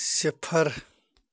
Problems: none marked